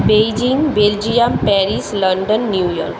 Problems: constant background noise